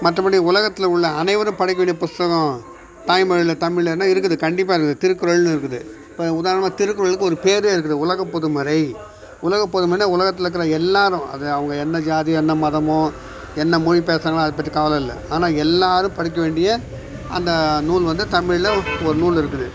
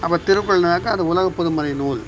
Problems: background sounds at intervals, background conversations at intervals